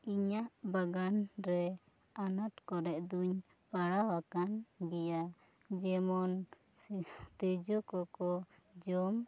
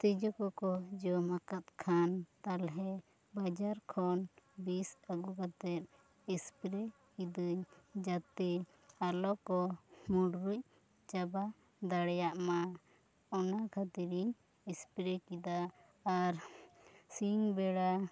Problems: low volume